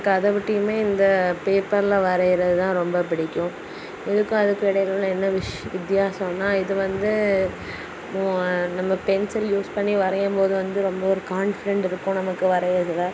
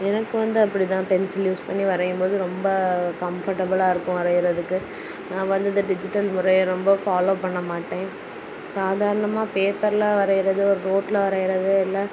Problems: constant background noise